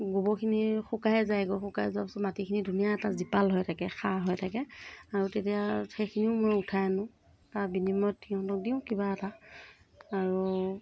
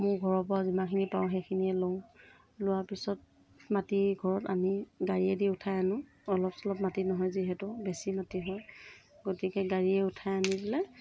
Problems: none marked